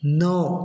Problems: constant background noise, echo